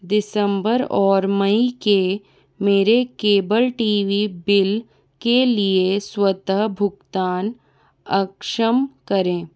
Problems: background sounds at intervals, background conversations at intervals